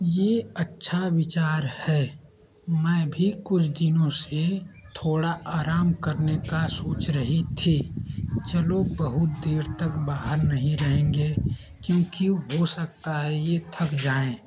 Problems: constant background noise